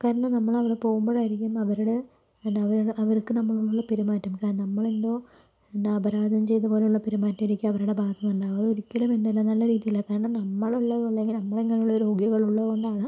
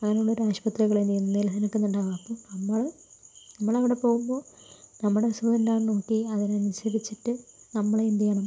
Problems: low volume